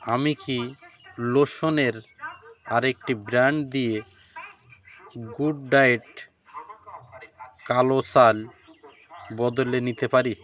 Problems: continuous background conversations